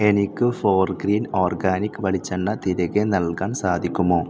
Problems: constant background noise